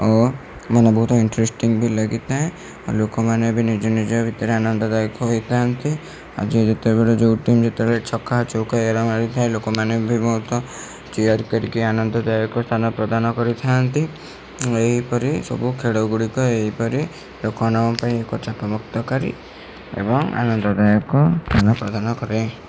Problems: constant background noise